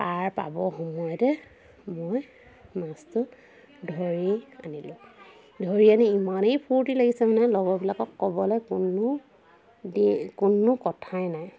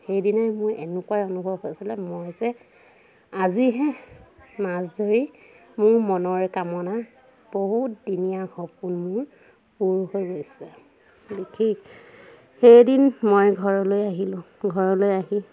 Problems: constant background noise, continuous background conversations